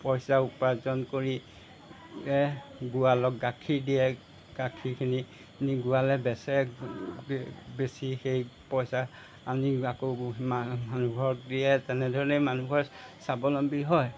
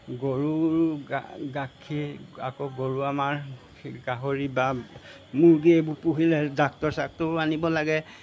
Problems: background sounds at intervals